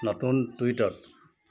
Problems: constant background noise